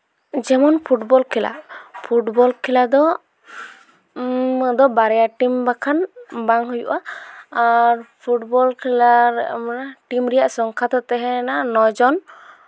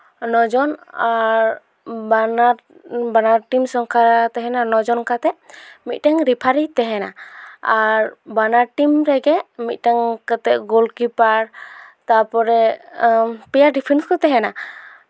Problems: none marked